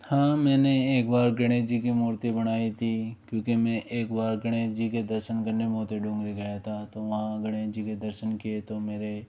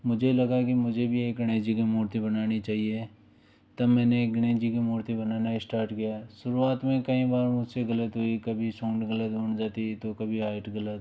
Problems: low volume